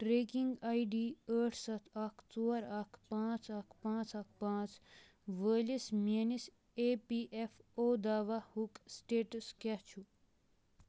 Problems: none marked